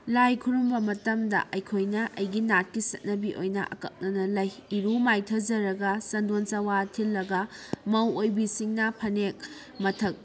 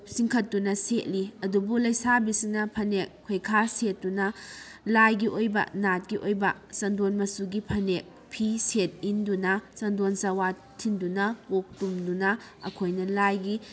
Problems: none marked